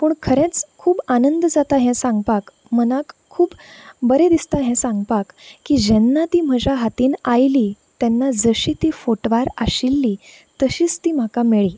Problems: constant background noise